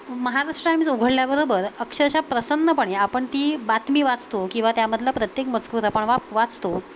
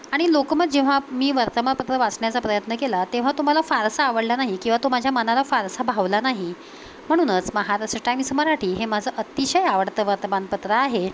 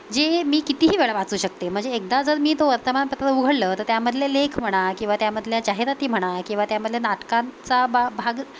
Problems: constant background noise